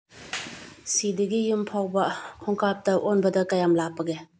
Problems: low volume